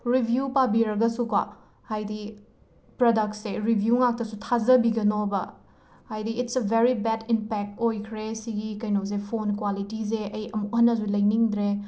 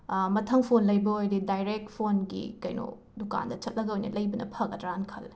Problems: none marked